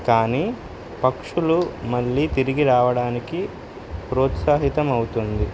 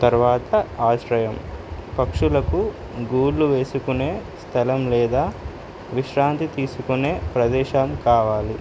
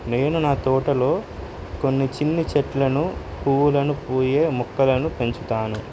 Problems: constant background noise